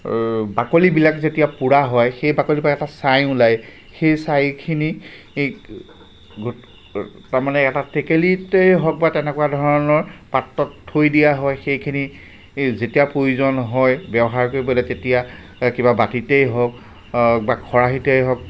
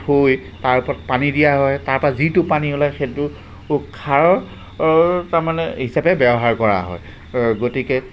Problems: constant background noise